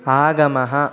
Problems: none marked